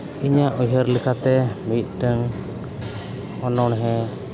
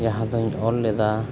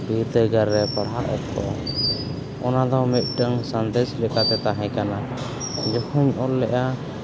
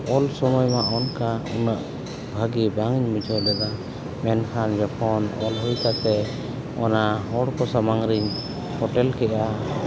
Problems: constant background noise, continuous background conversations